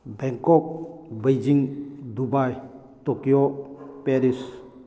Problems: background sounds at intervals